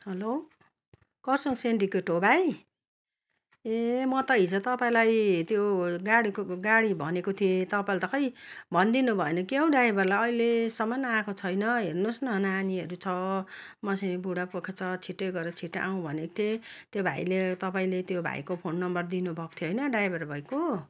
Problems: constant background noise